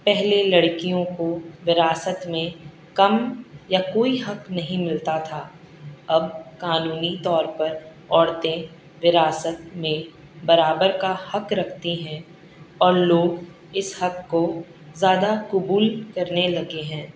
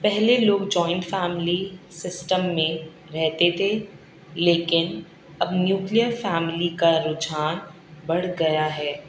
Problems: none marked